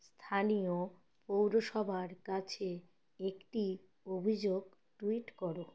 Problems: constant background noise